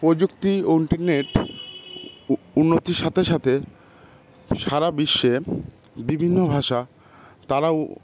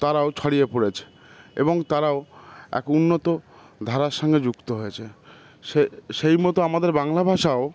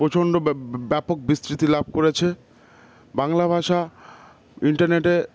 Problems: none marked